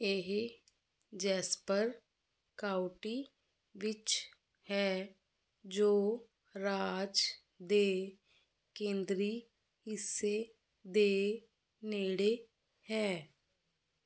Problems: constant background noise